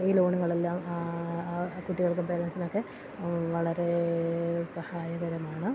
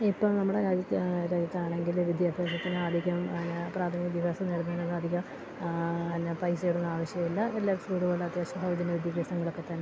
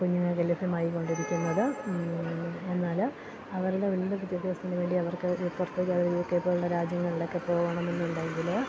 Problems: constant background noise